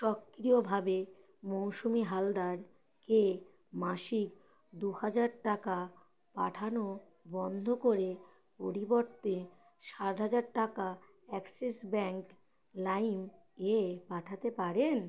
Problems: none marked